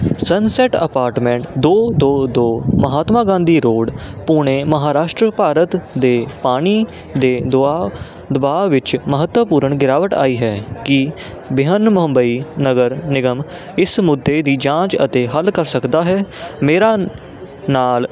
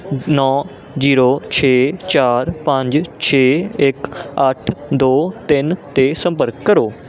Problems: none marked